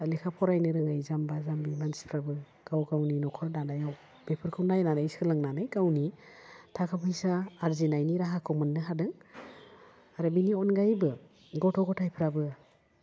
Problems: none marked